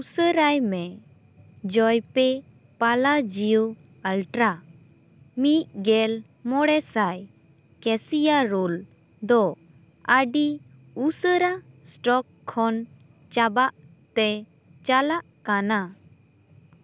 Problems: constant background noise